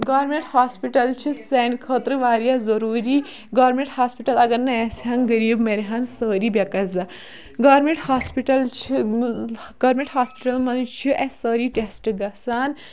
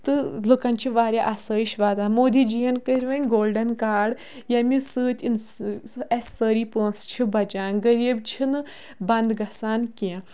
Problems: none marked